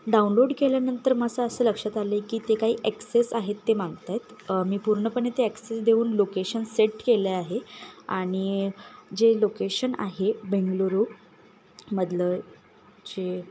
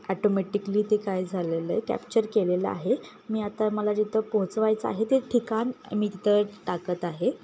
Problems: none marked